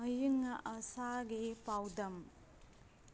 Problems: background sounds at intervals